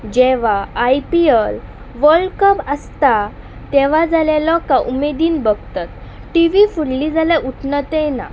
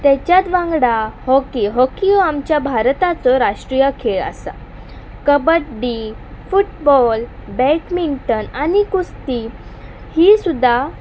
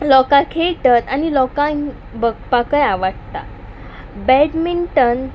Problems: none marked